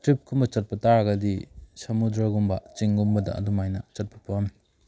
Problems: background sounds at intervals